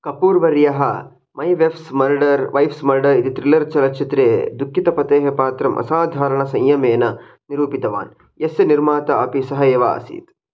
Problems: none marked